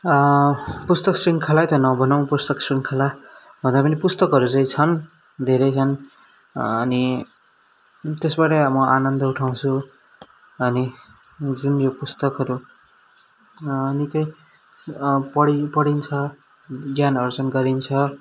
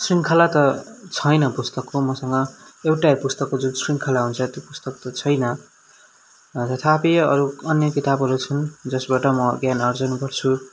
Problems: background sounds at intervals